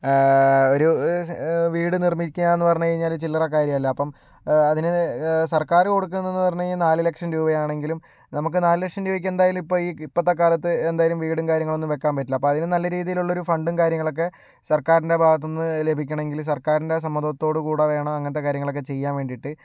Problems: none marked